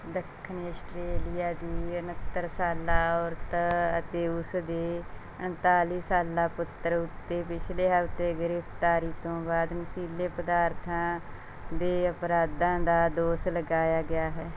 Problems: constant background noise